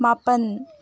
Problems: none marked